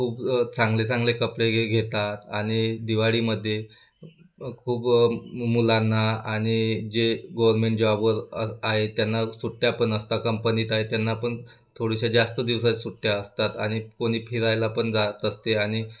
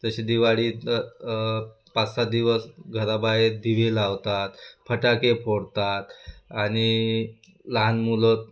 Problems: none marked